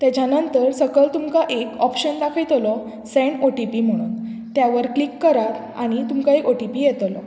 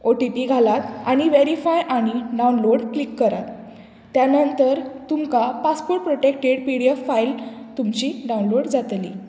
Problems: background sounds at intervals